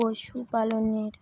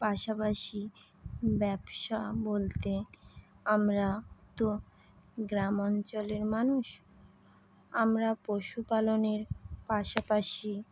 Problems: constant background noise